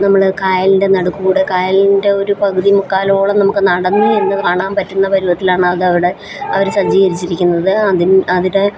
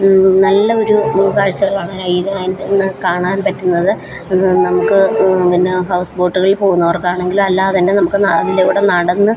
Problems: constant background noise, background conversations at intervals